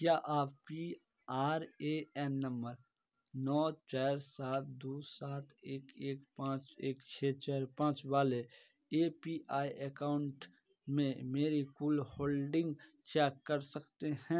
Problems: background sounds at intervals, background conversations at intervals